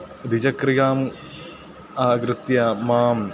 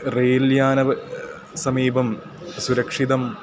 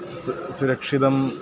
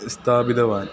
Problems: constant background noise